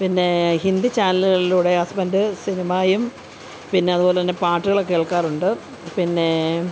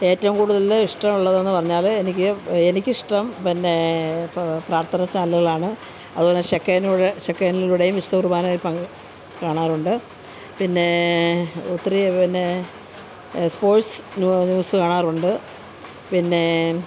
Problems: constant background noise, background conversations at intervals